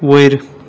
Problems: constant background noise